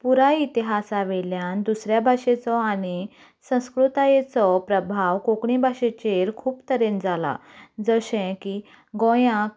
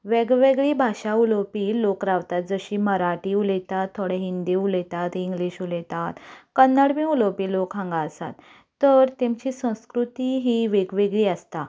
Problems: none marked